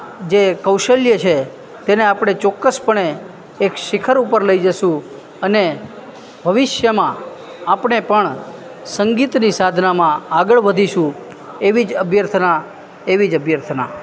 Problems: constant background noise